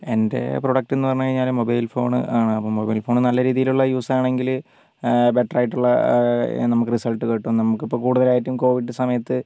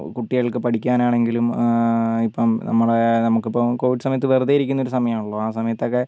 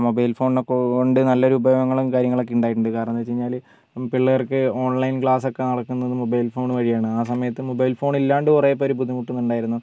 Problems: background sounds at intervals, low volume